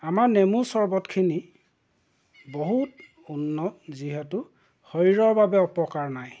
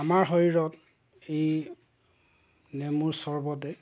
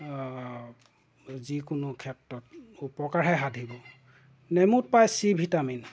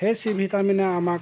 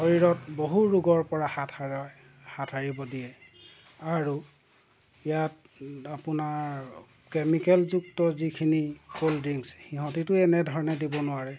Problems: background sounds at intervals